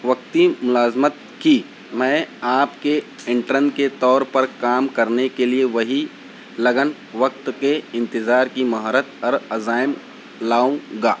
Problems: none marked